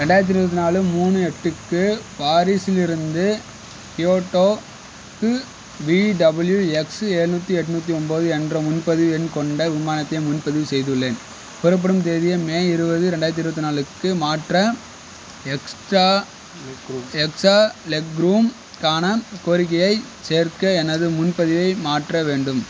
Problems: constant background noise